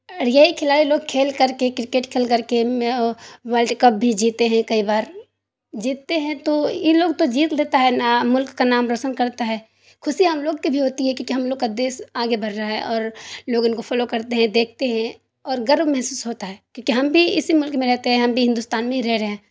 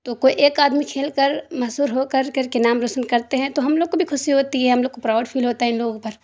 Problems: none marked